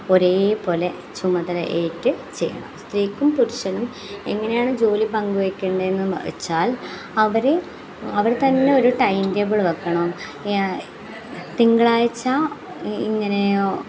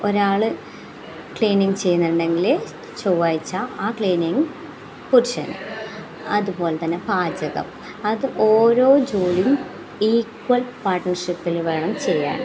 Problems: none marked